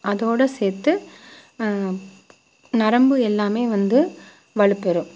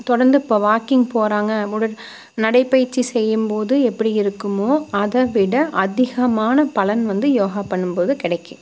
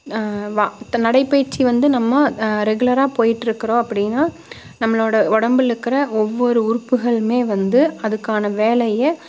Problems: constant background noise